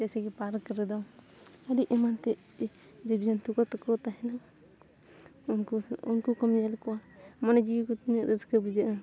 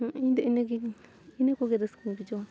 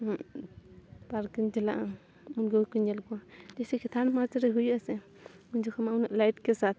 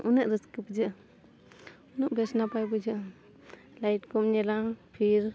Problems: none marked